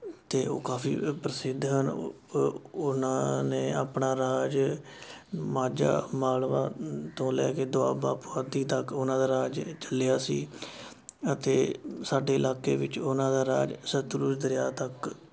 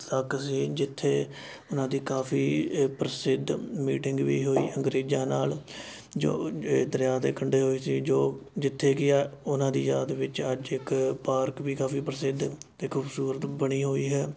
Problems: constant background noise